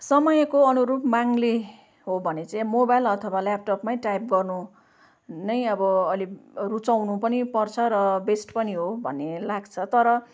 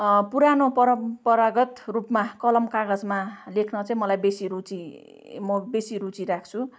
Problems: none marked